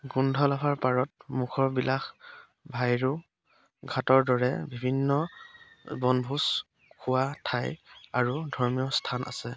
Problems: background sounds at intervals, background conversations at intervals